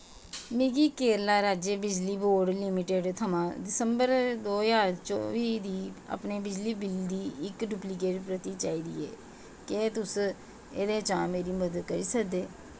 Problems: constant background noise